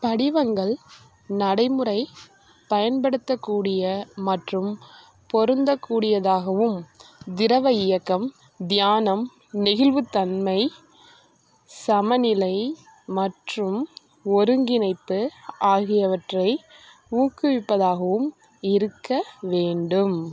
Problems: none marked